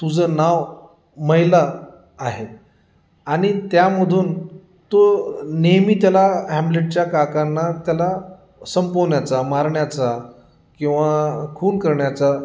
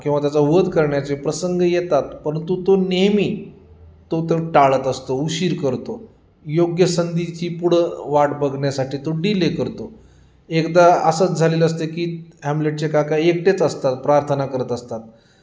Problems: none marked